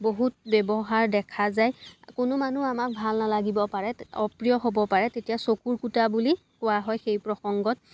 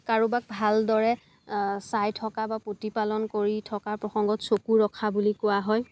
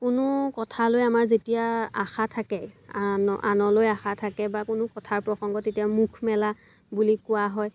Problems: constant background noise